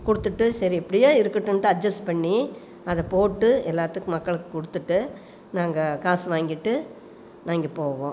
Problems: none marked